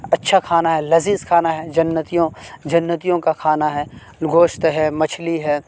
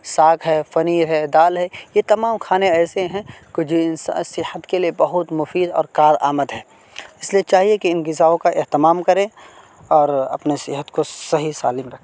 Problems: constant background noise